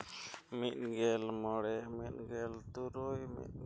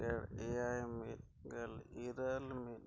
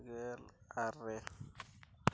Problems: low volume